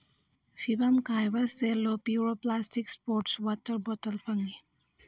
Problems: background sounds at intervals